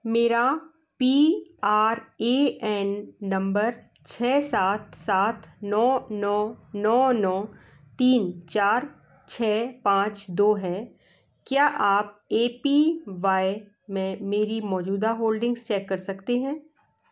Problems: background sounds at intervals